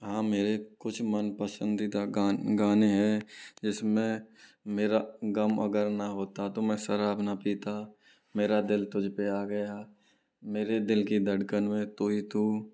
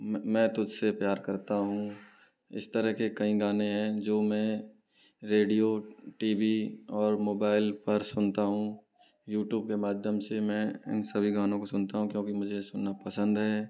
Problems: low volume